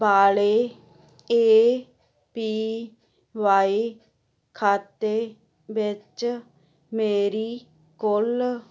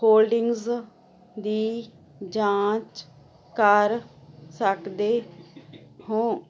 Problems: constant background noise